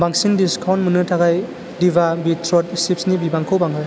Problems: constant background noise